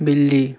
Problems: none marked